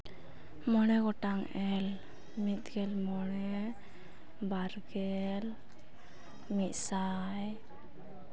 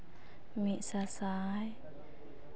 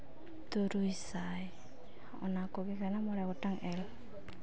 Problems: background sounds at intervals